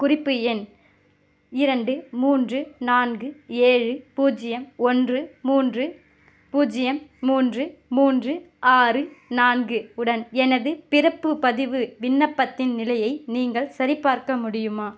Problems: none marked